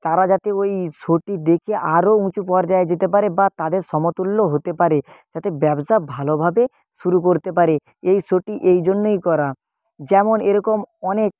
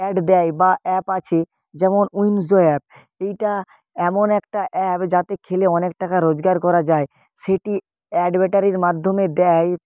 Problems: none marked